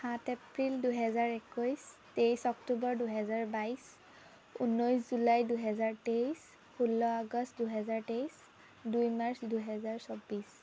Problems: constant background noise